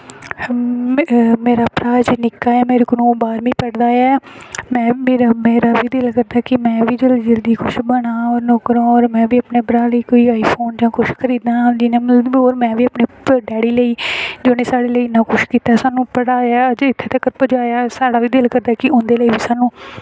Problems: background sounds at intervals